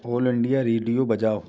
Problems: background sounds at intervals, background conversations at intervals